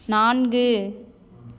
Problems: none marked